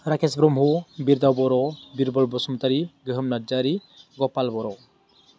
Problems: constant background noise